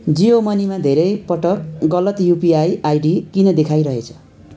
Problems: continuous background conversations